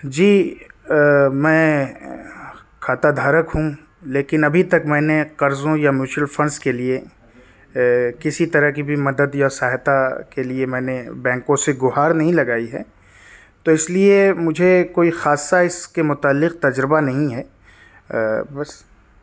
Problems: background sounds at intervals